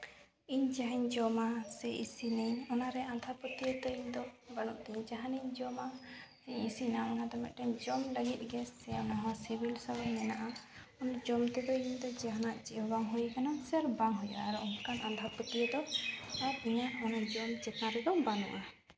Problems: constant background noise